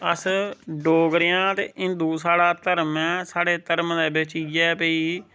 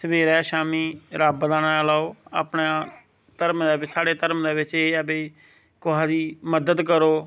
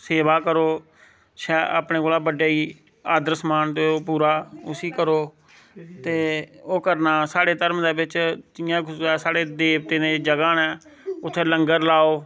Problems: none marked